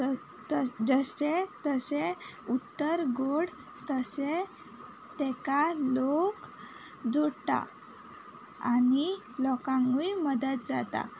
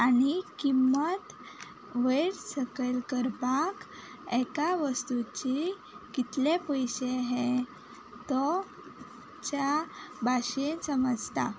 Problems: constant background noise